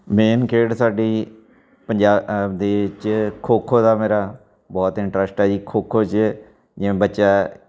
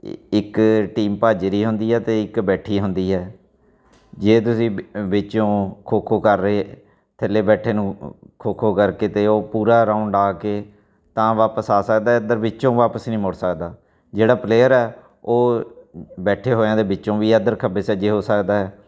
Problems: background sounds at intervals, background conversations at intervals